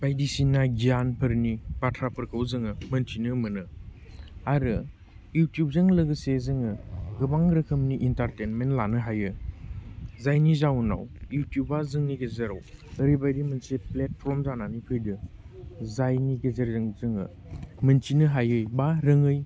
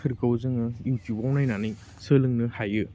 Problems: none marked